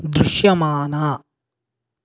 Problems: none marked